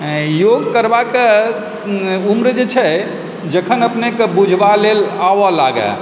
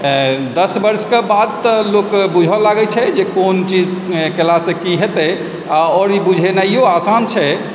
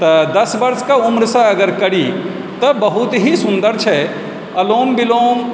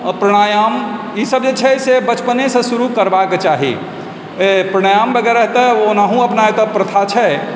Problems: constant background noise